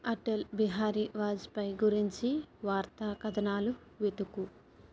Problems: low volume